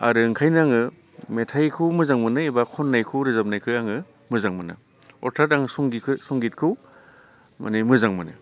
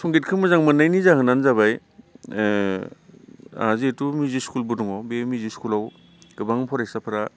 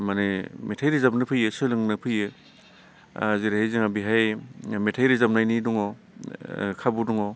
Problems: constant background noise